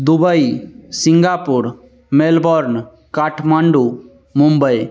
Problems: constant background noise